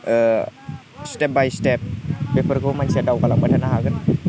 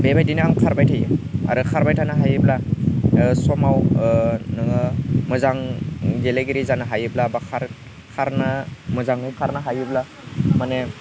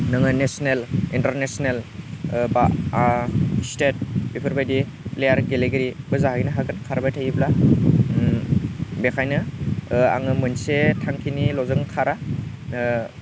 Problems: low volume